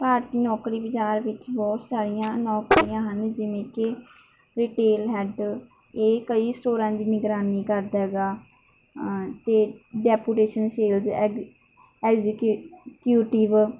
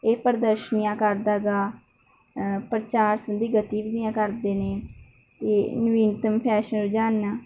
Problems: none marked